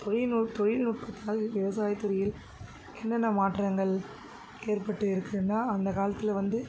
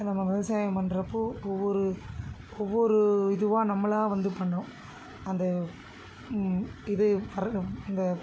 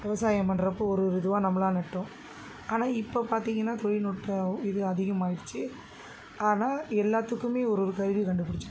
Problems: constant background noise